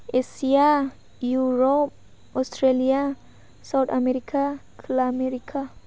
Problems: none marked